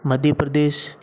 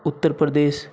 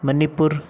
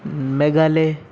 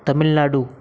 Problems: none marked